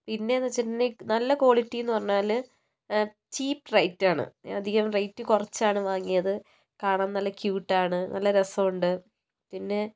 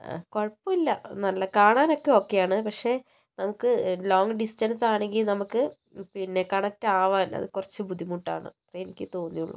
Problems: low volume